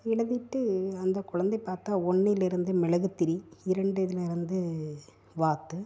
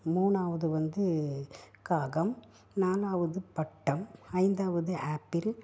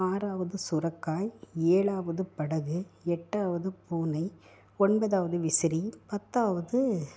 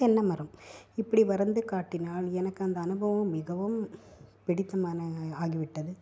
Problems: low volume